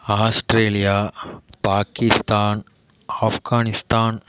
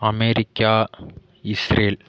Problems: none marked